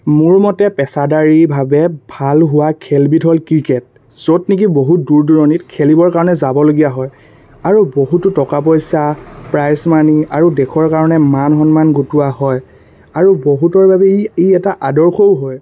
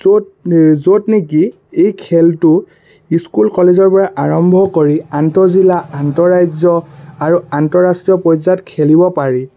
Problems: constant background noise